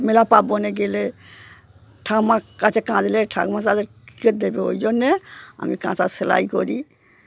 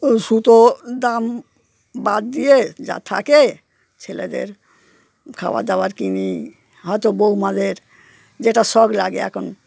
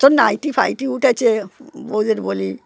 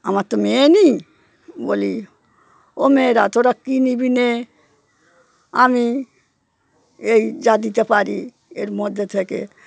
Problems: constant background noise